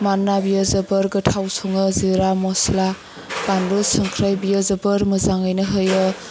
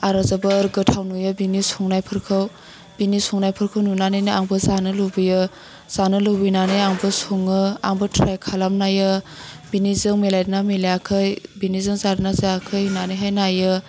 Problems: low volume